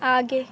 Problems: constant background noise